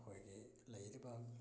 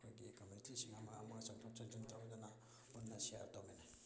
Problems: background sounds at intervals, low volume